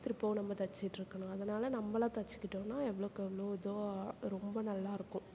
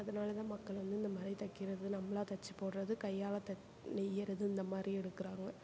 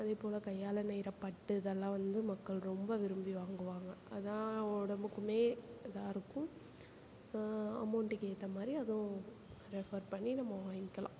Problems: constant background noise